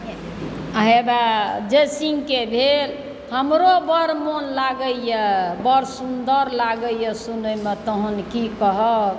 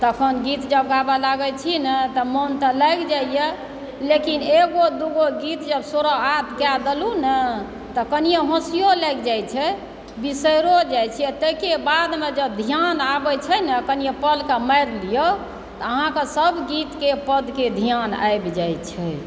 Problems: background sounds at intervals